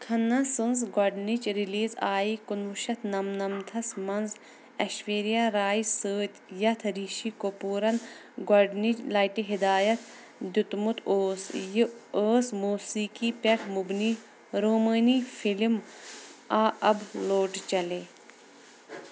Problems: constant background noise